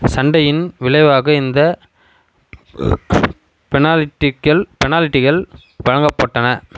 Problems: constant background noise